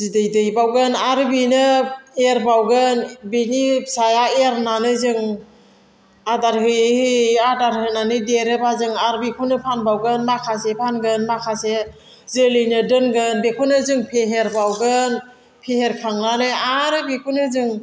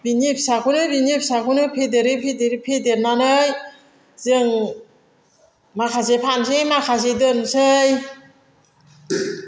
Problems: constant background noise